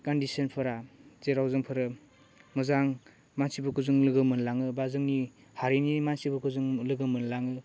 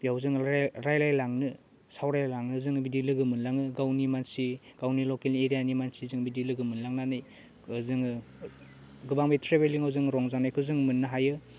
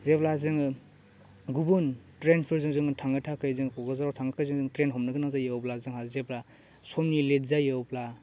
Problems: none marked